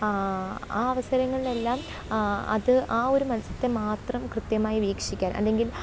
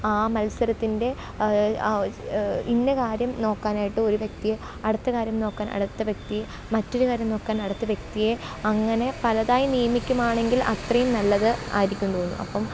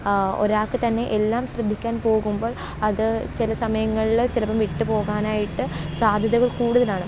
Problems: background sounds at intervals